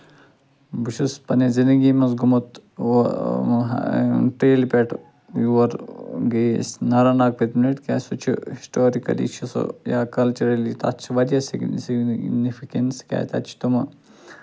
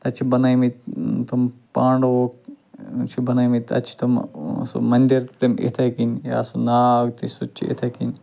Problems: constant background noise